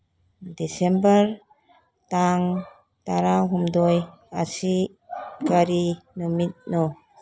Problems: background sounds at intervals